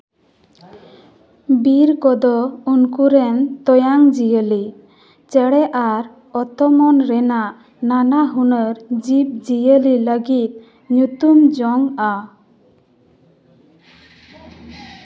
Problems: none marked